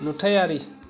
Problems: none marked